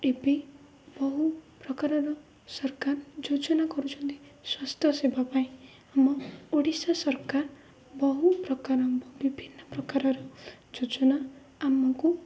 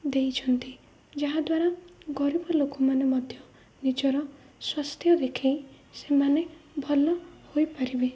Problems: low volume